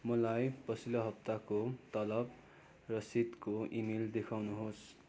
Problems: constant background noise